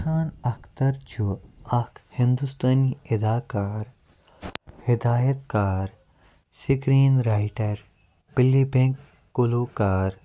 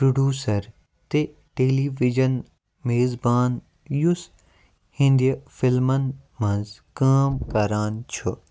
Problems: none marked